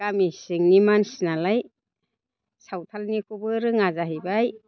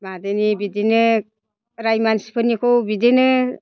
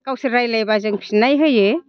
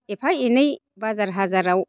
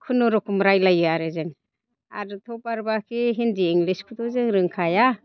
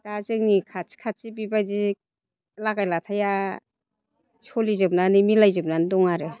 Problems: constant background noise